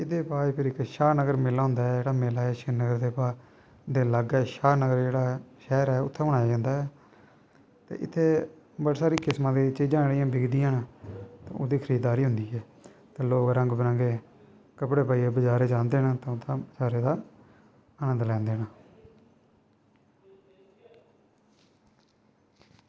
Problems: none marked